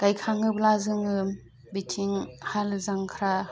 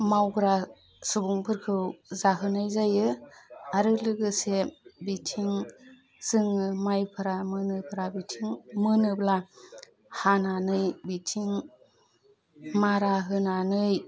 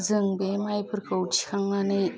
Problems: constant background noise